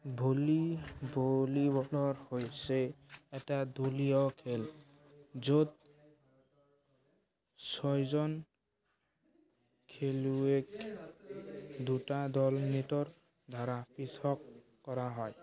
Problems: continuous background conversations